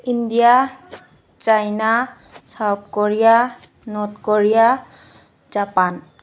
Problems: none marked